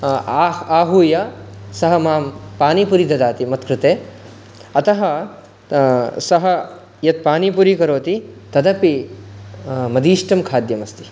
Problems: constant background noise